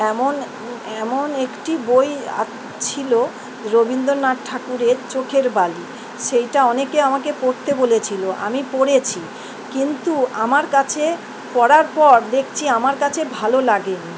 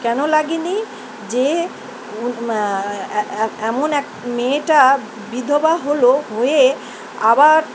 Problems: constant background noise